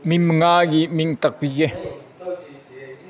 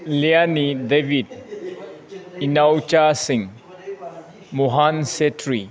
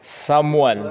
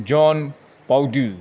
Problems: background sounds at intervals